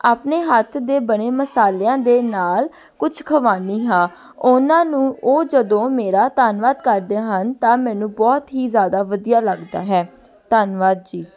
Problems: continuous background conversations